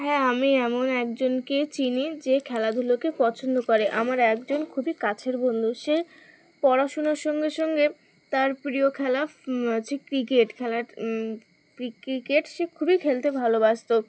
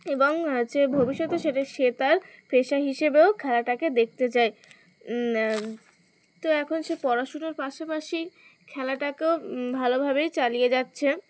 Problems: constant background noise